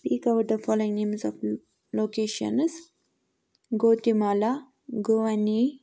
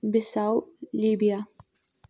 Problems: none marked